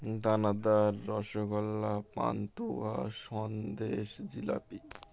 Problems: constant background noise, background conversations at intervals